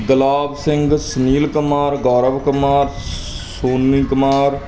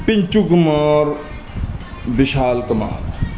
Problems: constant background noise